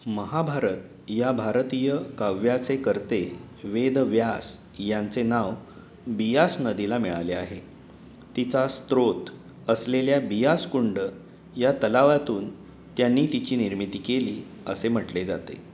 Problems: none marked